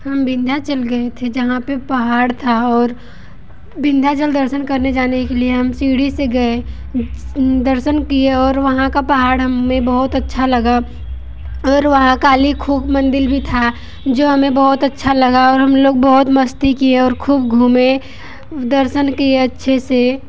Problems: constant background noise